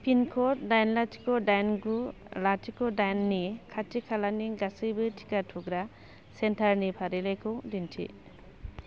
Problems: none marked